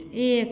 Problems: none marked